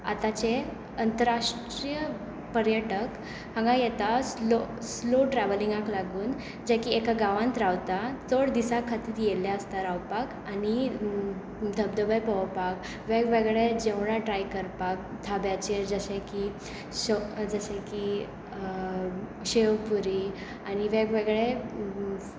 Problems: constant background noise